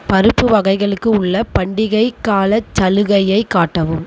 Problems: constant background noise